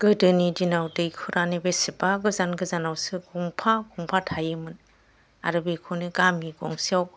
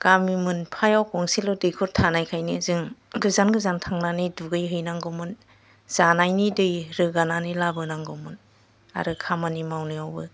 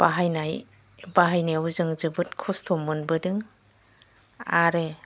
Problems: none marked